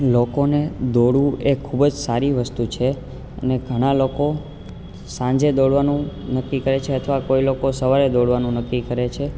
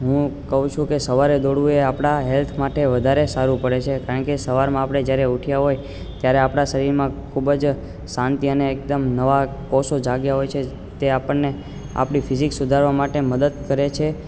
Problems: constant background noise